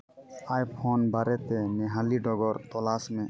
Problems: none marked